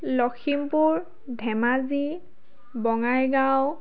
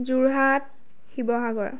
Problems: background sounds at intervals